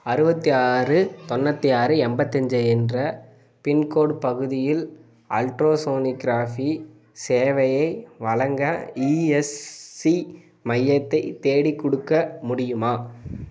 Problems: constant background noise